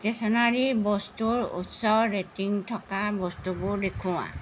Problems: constant background noise